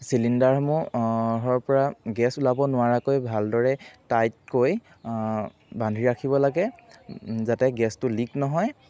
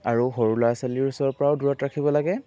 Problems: background sounds at intervals